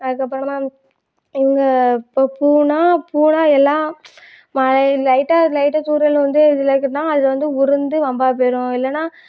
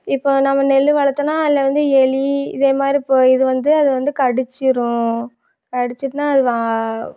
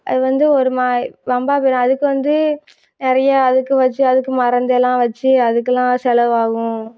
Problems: none marked